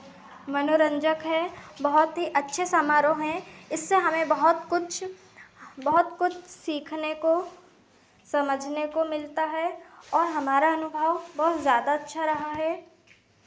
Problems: constant background noise, continuous background conversations